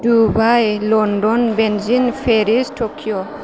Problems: constant background noise